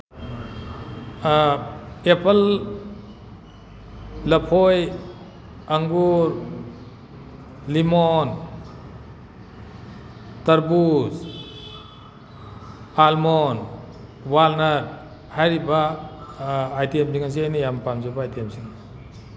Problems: background sounds at intervals